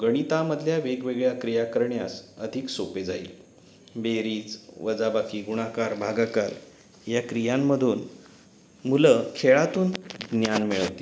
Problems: constant background noise